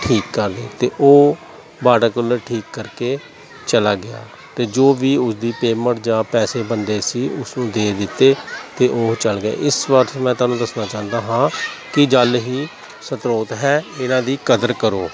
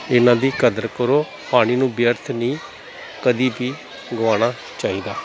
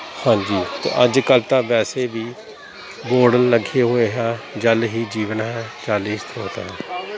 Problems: none marked